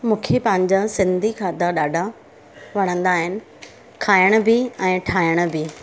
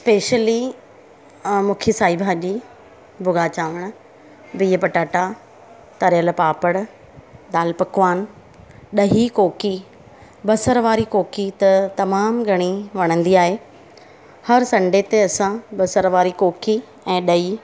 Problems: constant background noise